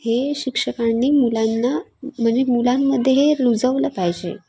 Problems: background sounds at intervals, background conversations at intervals